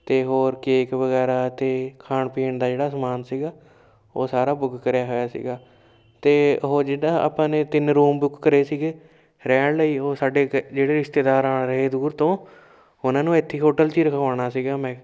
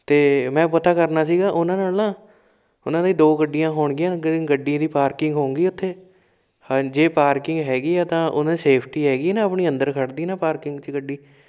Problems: background sounds at intervals